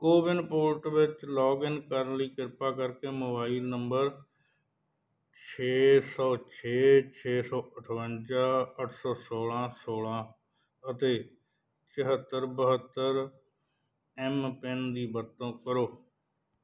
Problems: background sounds at intervals